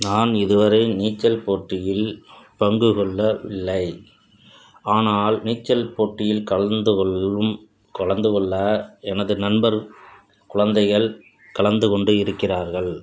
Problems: constant background noise